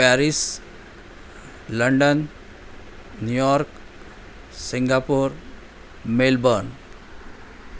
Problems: none marked